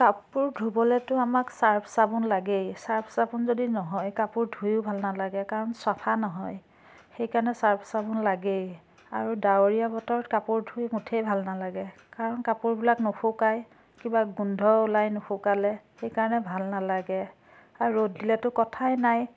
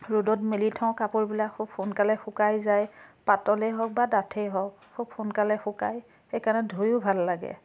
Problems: constant background noise